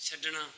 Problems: background sounds at intervals